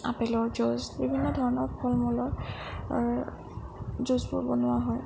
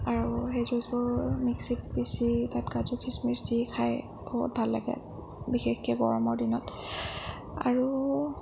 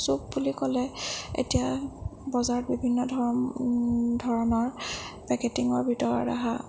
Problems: low volume